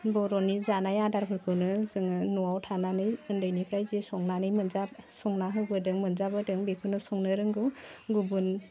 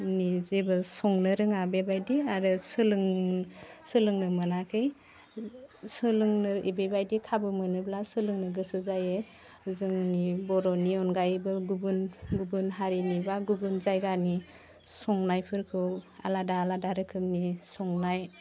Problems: none marked